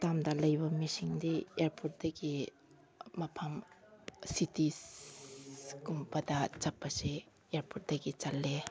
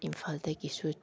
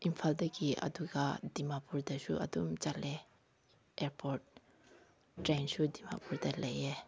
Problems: background conversations at intervals